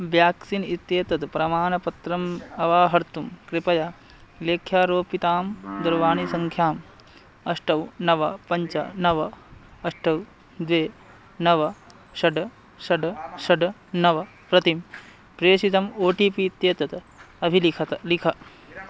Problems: background sounds at intervals